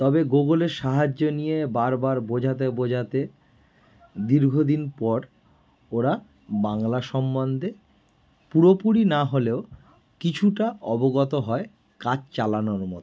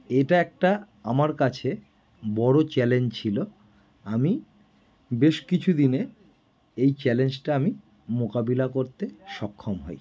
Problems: none marked